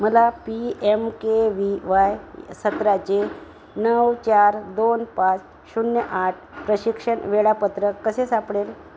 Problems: constant background noise